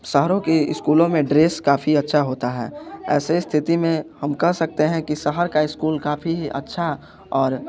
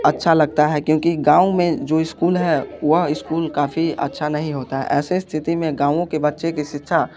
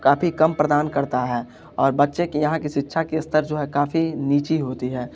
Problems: constant background noise